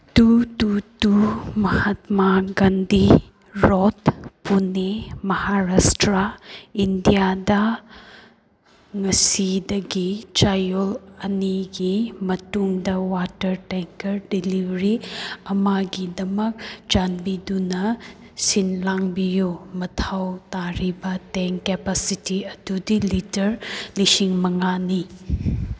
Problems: none marked